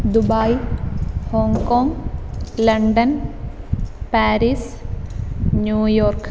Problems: none marked